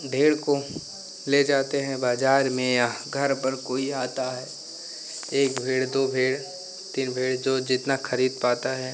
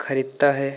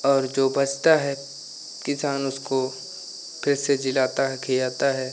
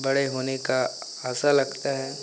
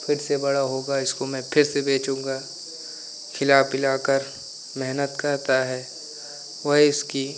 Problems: none marked